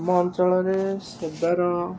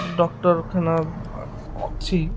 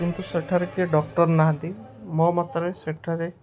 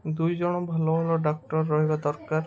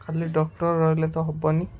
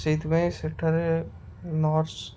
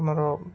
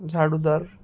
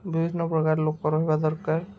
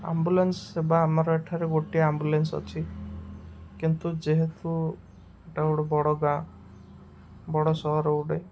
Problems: constant background noise